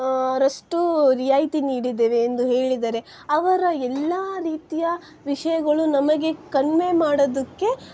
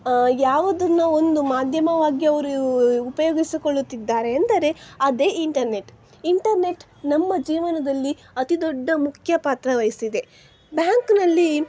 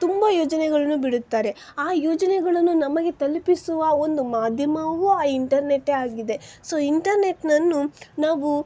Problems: background sounds at intervals